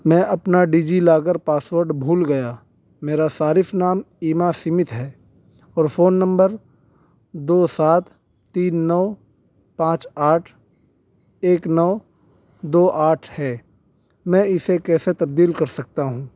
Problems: none marked